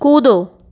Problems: none marked